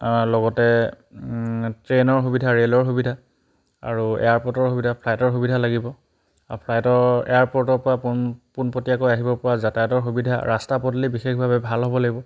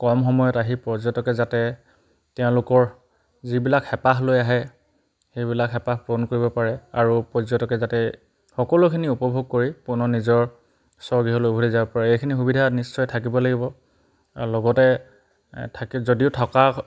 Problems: background sounds at intervals